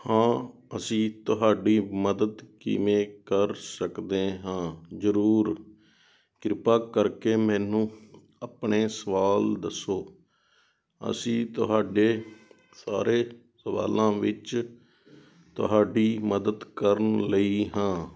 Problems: background sounds at intervals